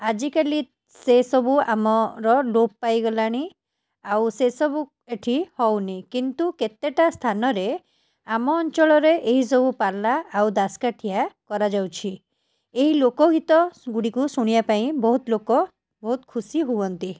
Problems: none marked